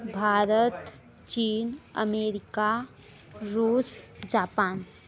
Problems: background sounds at intervals, background conversations at intervals